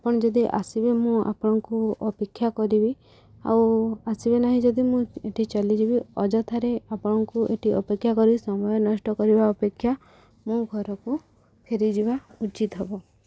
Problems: none marked